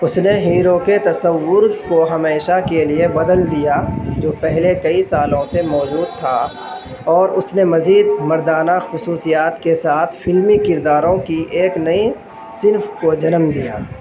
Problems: constant background noise, background conversations at intervals